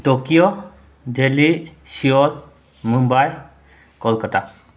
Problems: none marked